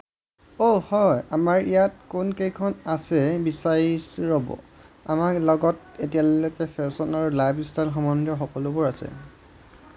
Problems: none marked